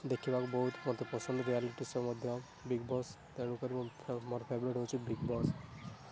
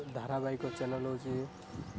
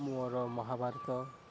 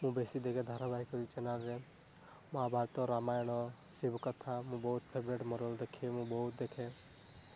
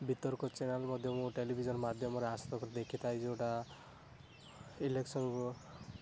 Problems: constant background noise